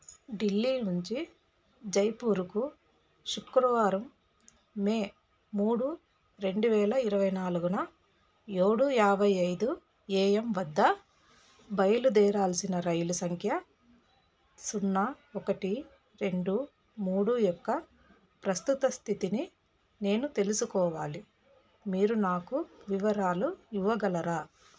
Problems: none marked